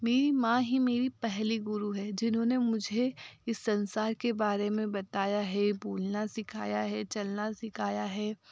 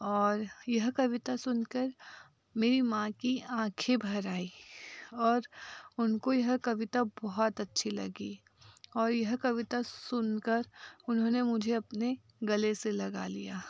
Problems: none marked